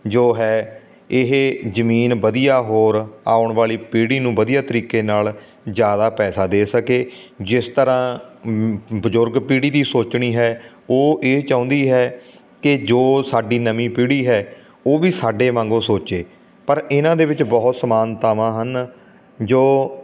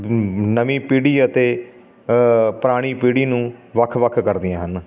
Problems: none marked